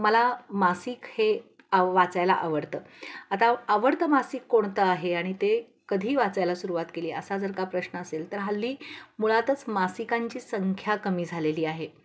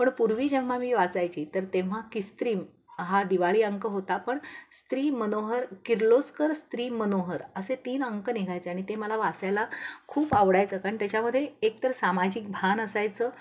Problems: constant background noise